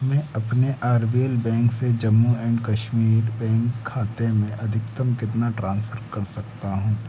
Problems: none marked